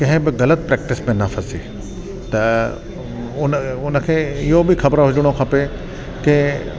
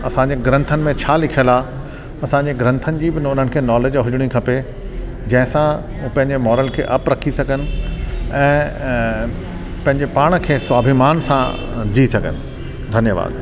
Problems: constant background noise